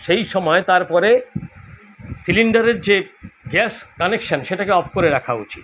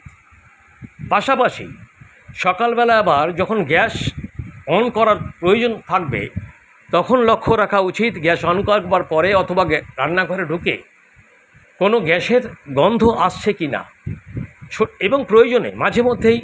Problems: constant background noise